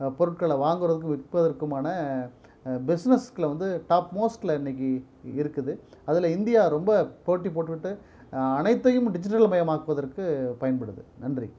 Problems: none marked